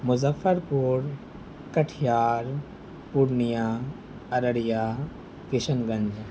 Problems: constant background noise